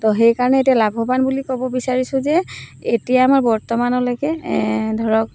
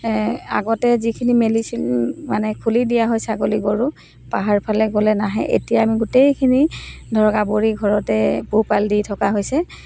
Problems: none marked